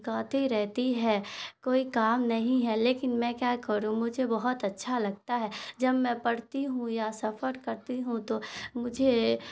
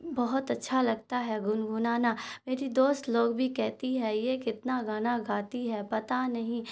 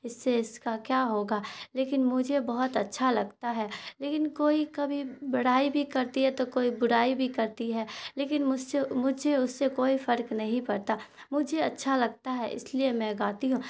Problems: constant background noise